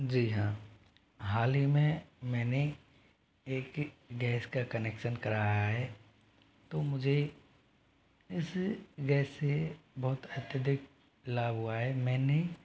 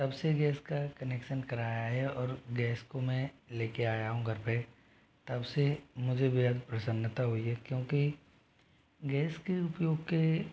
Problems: constant background noise